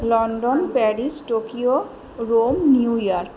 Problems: none marked